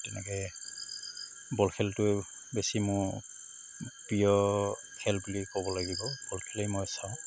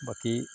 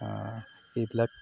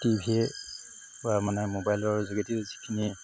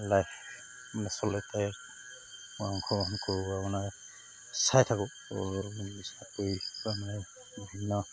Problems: constant background noise